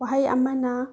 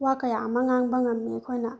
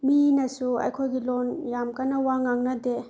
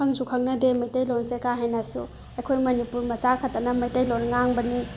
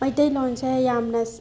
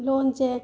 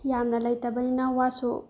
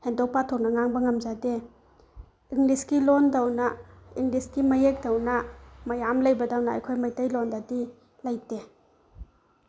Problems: background sounds at intervals